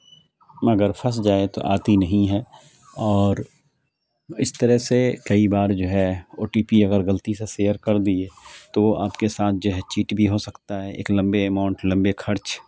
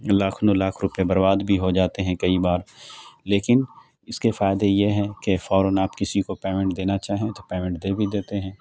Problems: constant background noise